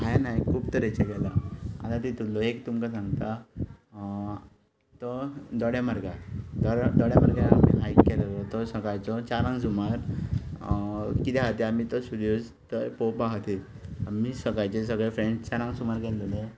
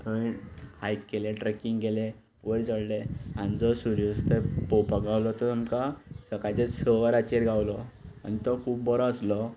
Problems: background sounds at intervals